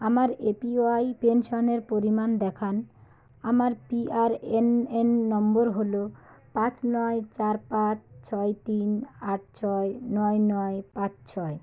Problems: none marked